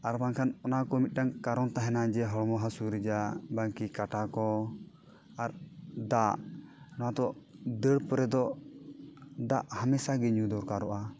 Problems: background sounds at intervals